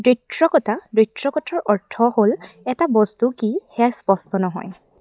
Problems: none marked